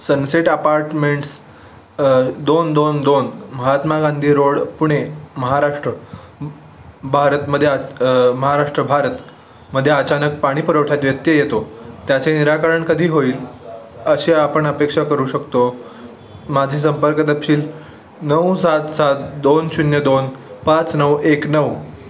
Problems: none marked